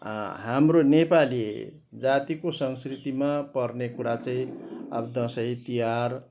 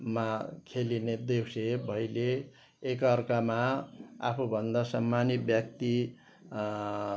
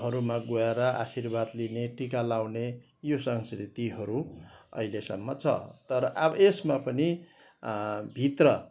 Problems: none marked